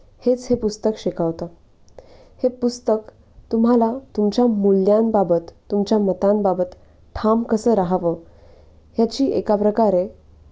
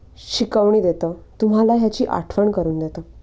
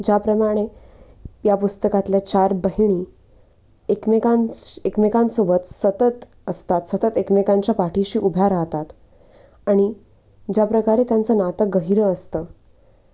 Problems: constant background noise, background conversations at intervals